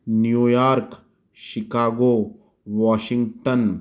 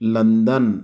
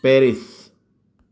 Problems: none marked